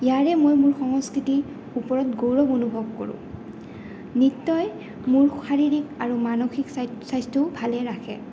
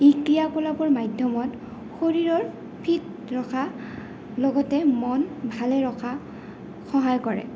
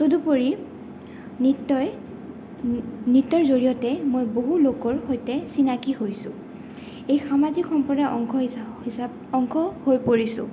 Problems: none marked